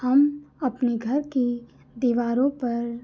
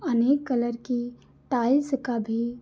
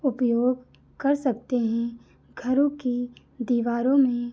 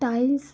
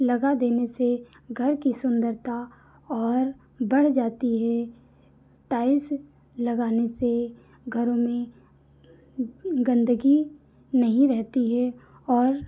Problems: none marked